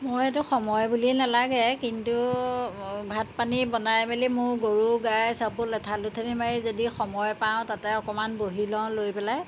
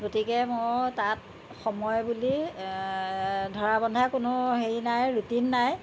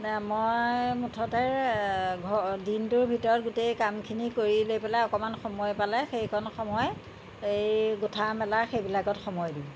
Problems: constant background noise